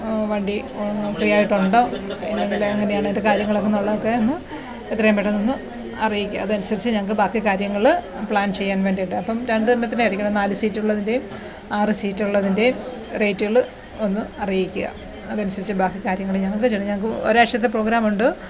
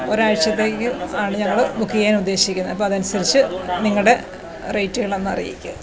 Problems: none marked